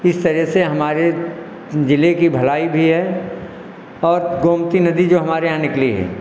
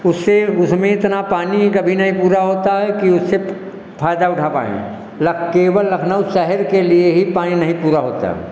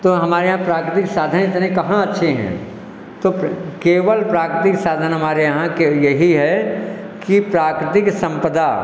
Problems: echo